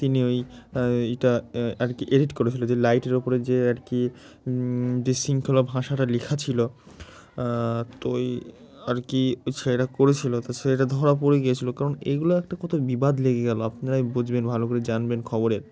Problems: background sounds at intervals